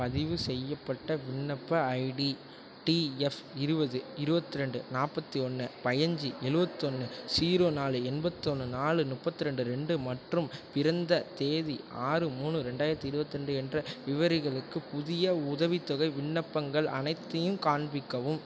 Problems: background sounds at intervals